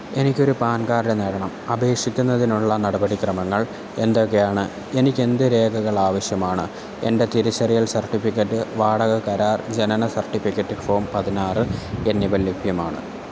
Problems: constant background noise